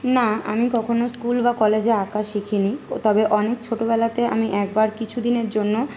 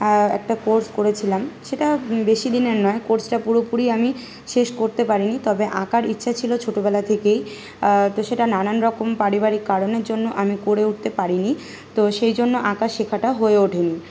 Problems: constant background noise